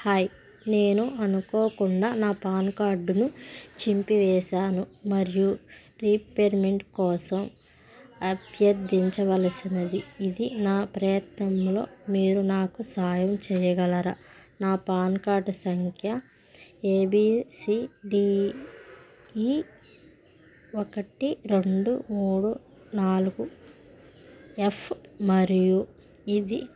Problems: constant background noise